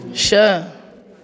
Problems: constant background noise, echo